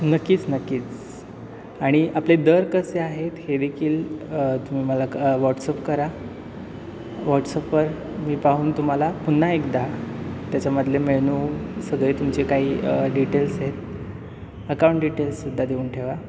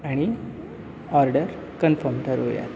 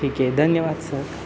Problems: constant background noise, background conversations at intervals